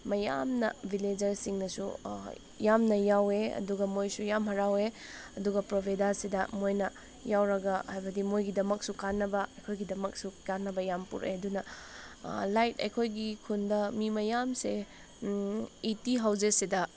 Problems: none marked